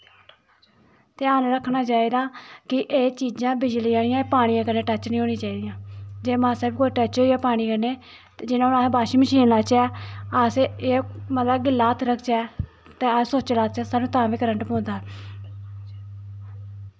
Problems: none marked